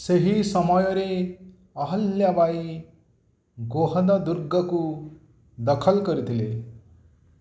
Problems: none marked